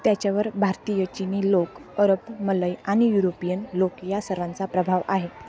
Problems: constant background noise, continuous background conversations